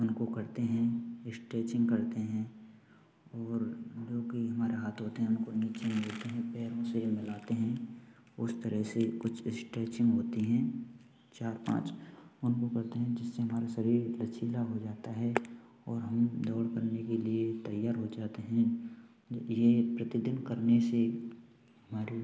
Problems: continuous background conversations, low volume